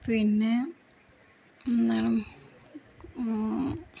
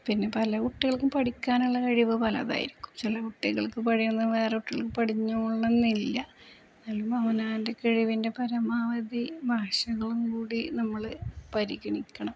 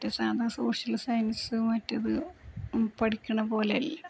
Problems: low volume